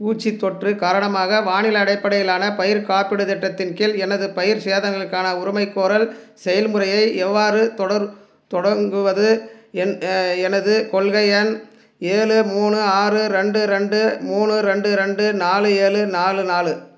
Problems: none marked